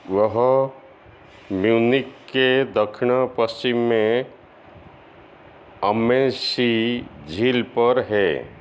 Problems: constant background noise, echo